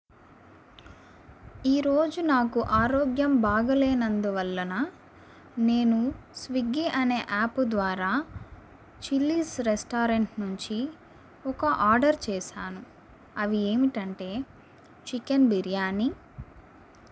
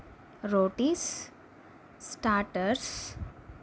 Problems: constant background noise